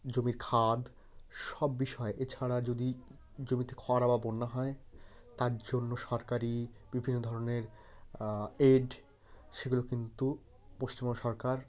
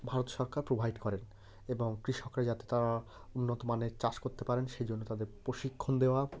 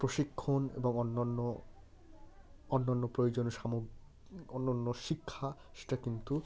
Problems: constant background noise